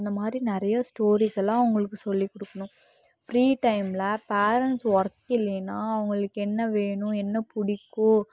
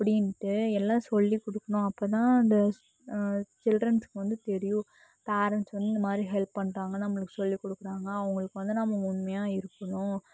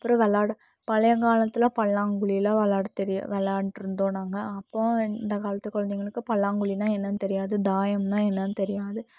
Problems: none marked